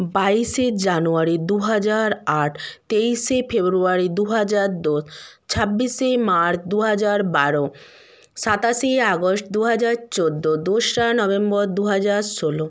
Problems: none marked